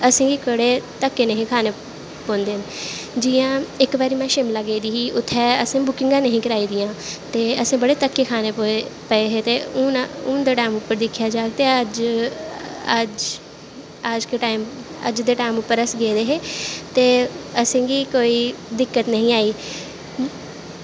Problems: constant background noise